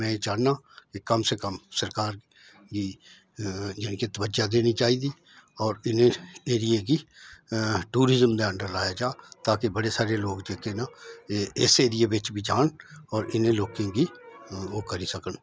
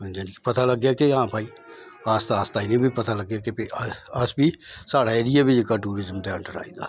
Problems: none marked